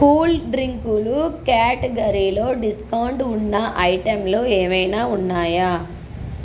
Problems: none marked